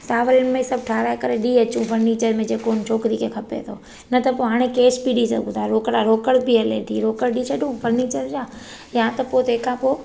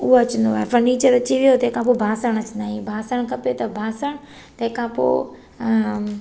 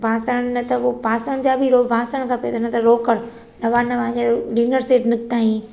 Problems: echo